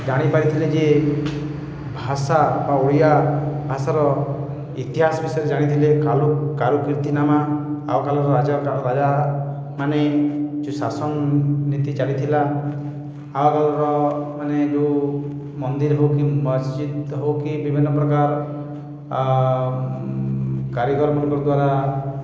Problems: echo